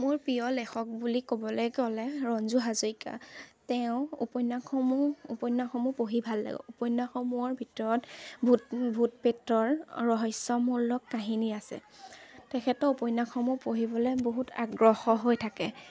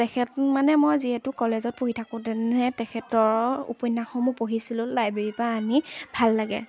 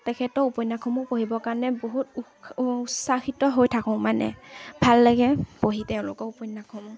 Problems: constant background noise, background conversations at intervals